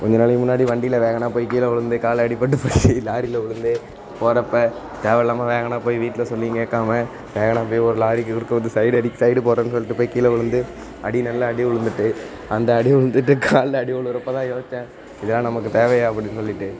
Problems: constant background noise, low volume